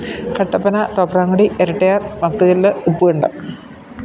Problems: constant background noise